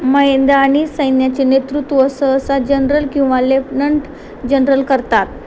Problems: constant background noise